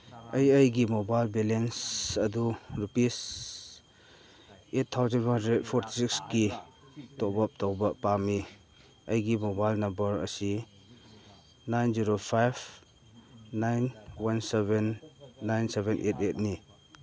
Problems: background sounds at intervals, background conversations at intervals